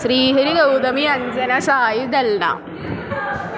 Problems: constant background noise